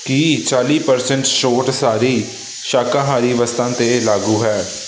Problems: constant background noise